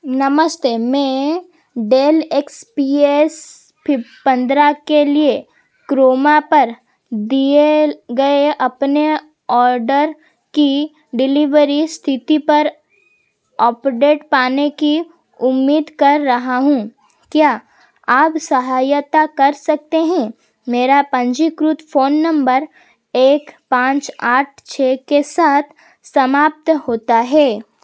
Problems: constant background noise